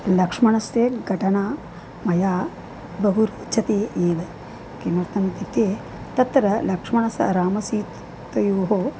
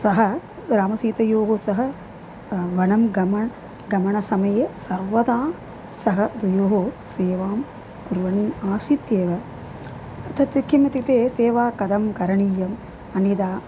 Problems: constant background noise